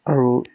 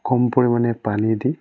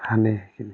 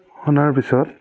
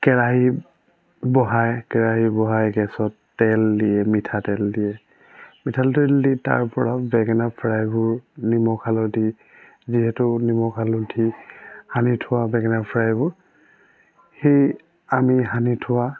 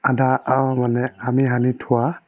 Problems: none marked